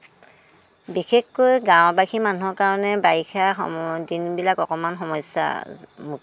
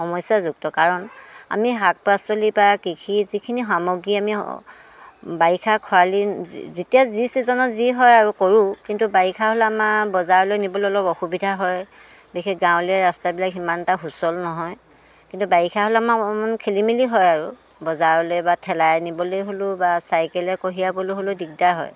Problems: none marked